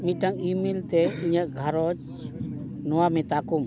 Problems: constant background noise